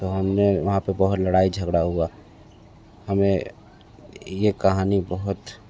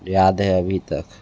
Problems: background sounds at intervals, background conversations at intervals